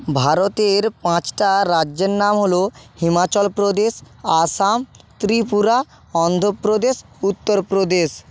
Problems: background sounds at intervals